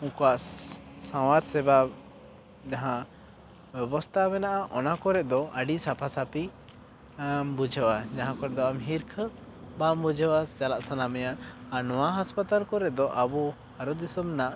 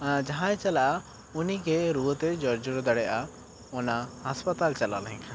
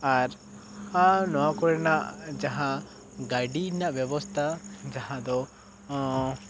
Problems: background sounds at intervals